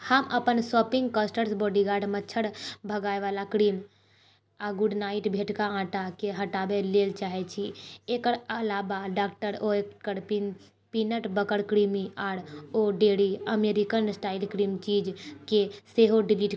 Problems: low volume